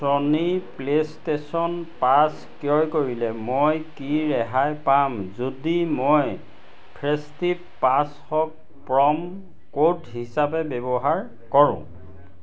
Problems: constant background noise